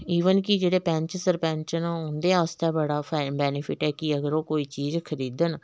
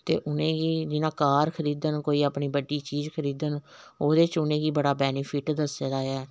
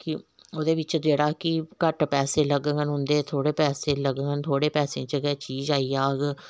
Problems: background sounds at intervals